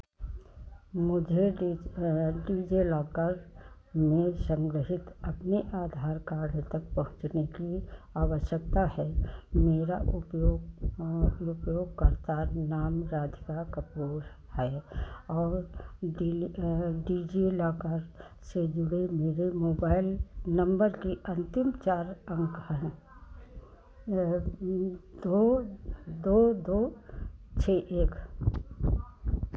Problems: constant background noise